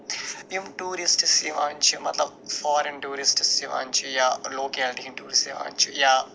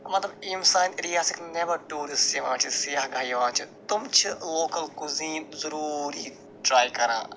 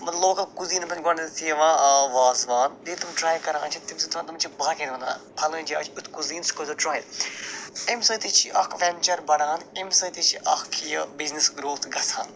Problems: constant background noise